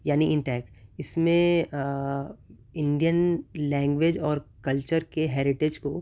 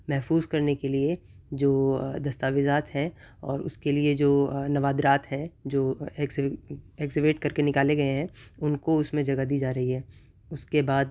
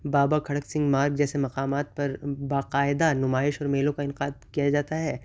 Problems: none marked